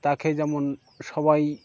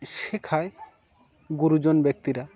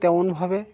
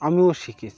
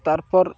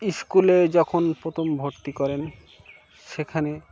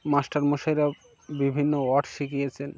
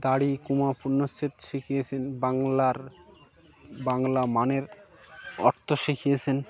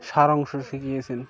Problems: background sounds at intervals